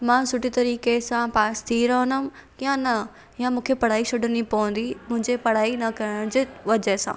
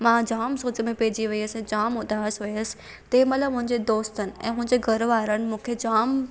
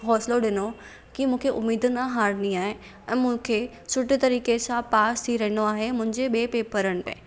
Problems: none marked